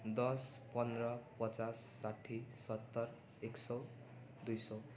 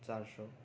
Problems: constant background noise